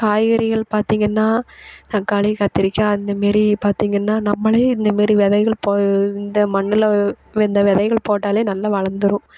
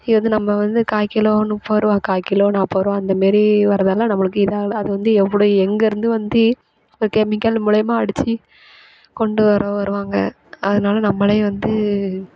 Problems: none marked